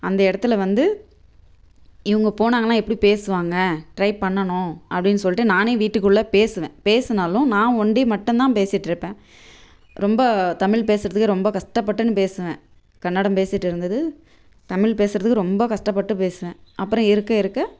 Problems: background sounds at intervals